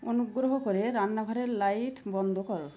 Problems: constant background noise